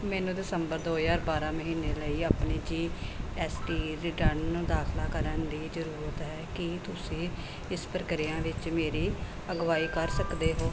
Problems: background sounds at intervals